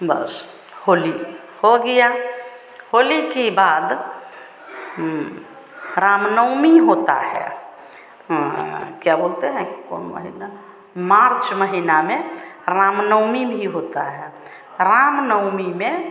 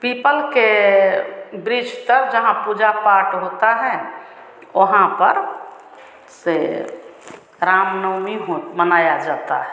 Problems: none marked